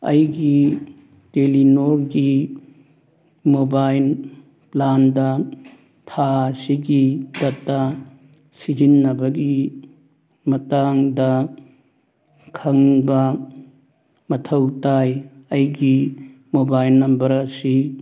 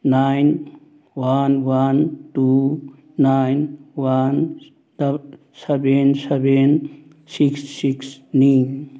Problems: none marked